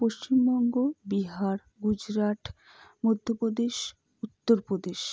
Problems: low volume